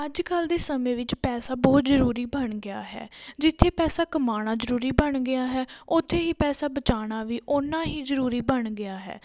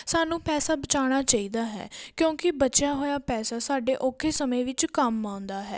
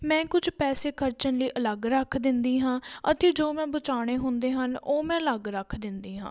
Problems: background sounds at intervals